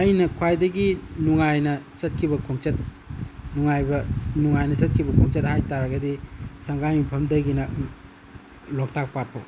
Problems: constant background noise